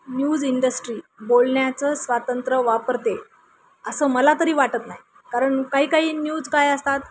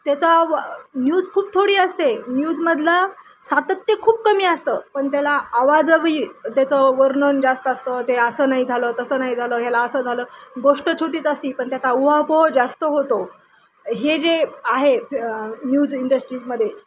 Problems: constant background noise